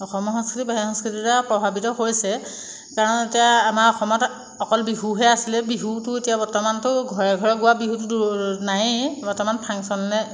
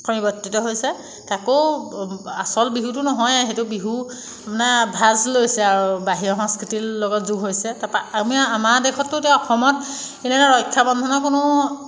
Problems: background sounds at intervals